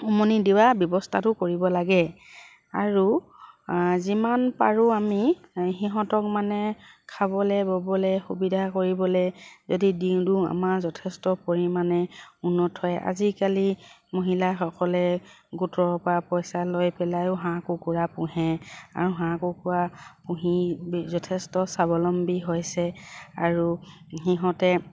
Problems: none marked